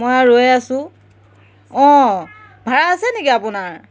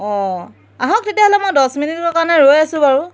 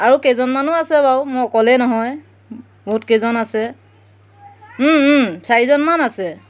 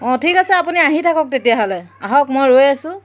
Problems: none marked